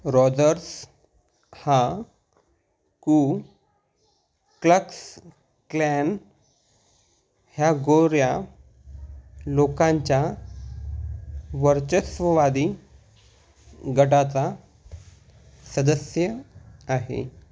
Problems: background sounds at intervals